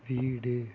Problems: none marked